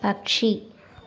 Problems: none marked